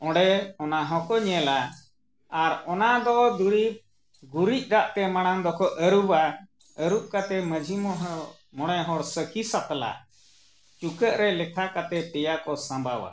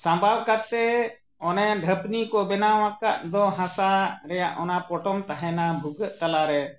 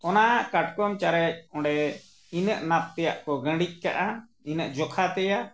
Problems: none marked